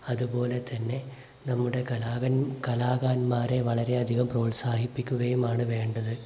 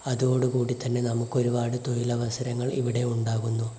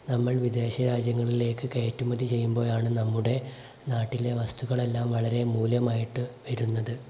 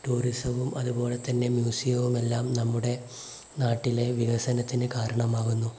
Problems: constant background noise